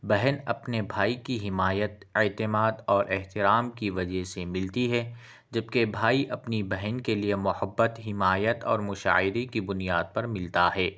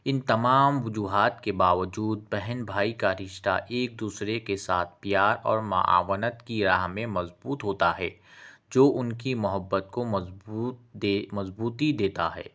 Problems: none marked